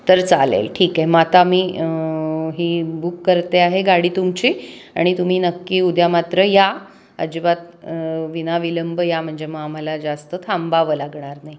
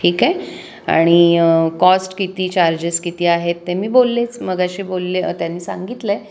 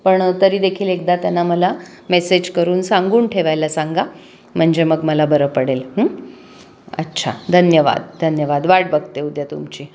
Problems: none marked